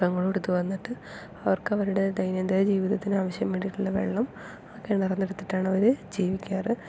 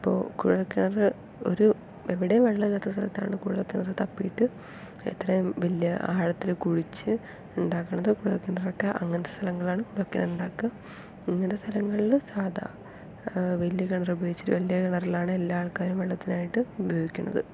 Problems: none marked